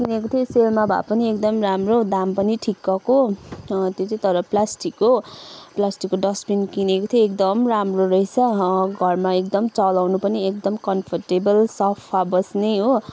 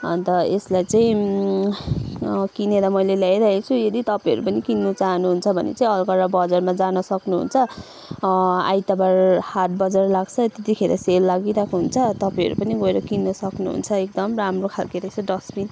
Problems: background sounds at intervals